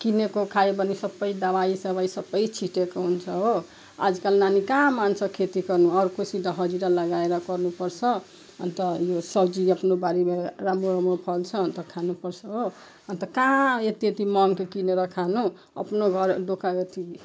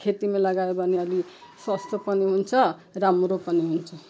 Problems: background sounds at intervals